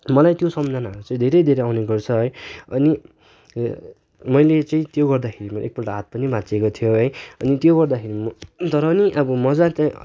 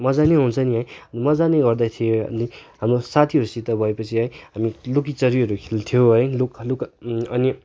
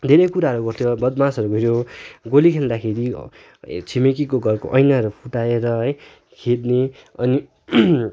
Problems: background sounds at intervals